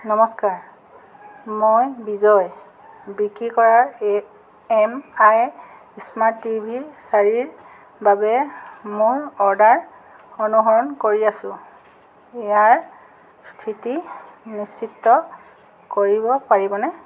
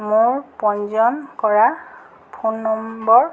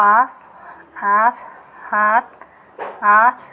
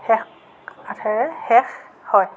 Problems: background sounds at intervals